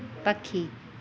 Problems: constant background noise